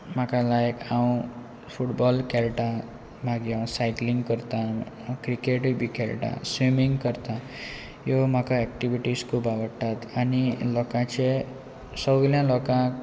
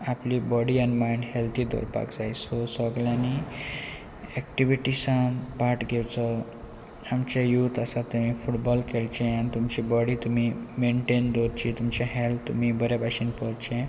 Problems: none marked